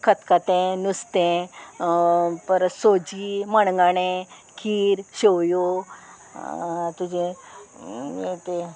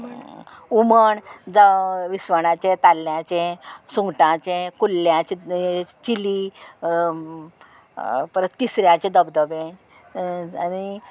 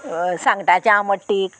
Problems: none marked